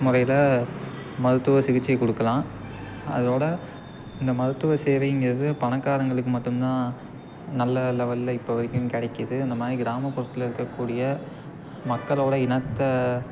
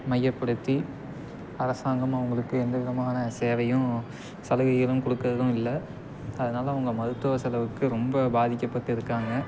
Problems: constant background noise